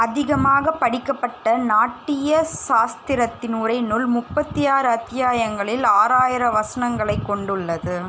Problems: constant background noise